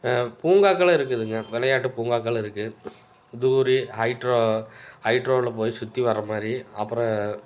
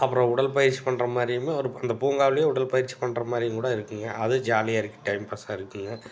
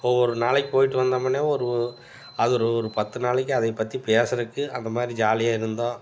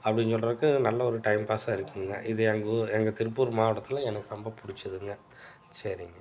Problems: background sounds at intervals